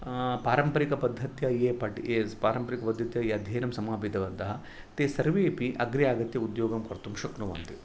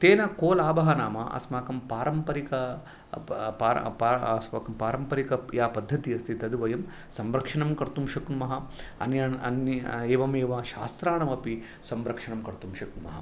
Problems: background sounds at intervals